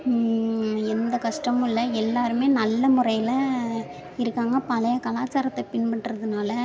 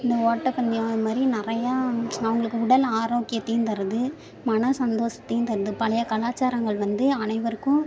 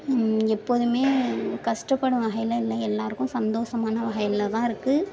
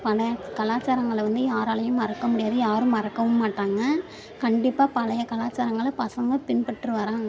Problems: background sounds at intervals, background conversations at intervals